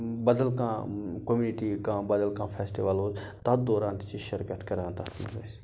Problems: background sounds at intervals